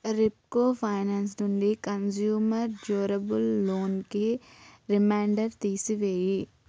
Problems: background sounds at intervals